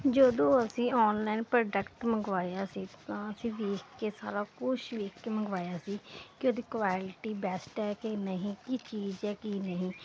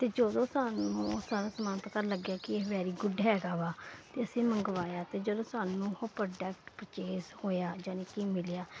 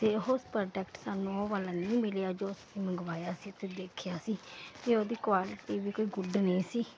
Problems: none marked